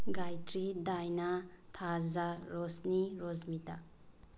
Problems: low volume